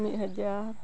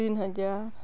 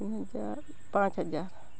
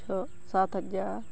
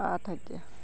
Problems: none marked